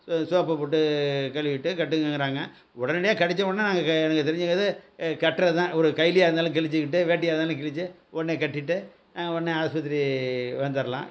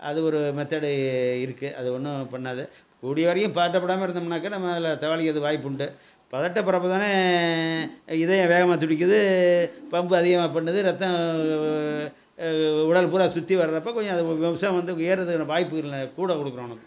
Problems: none marked